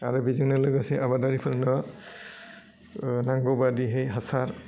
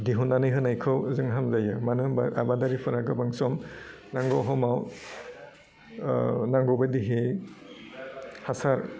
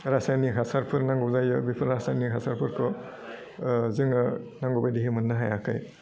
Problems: none marked